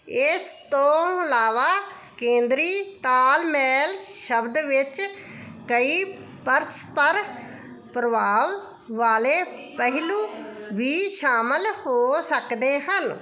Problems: background conversations at intervals